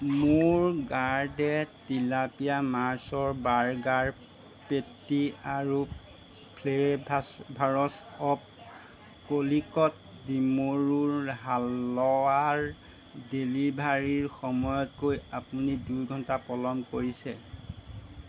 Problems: none marked